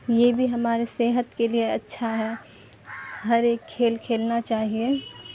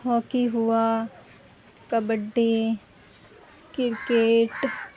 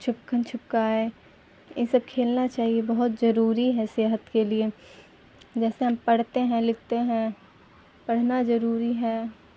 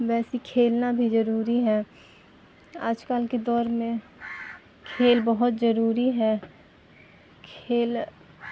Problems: constant background noise, background conversations at intervals